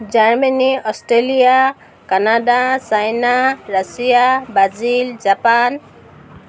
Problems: none marked